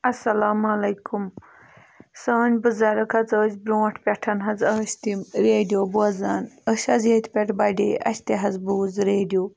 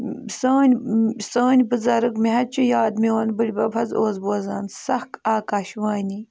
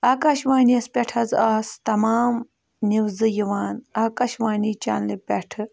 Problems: background sounds at intervals